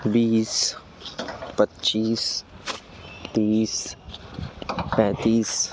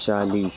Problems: background sounds at intervals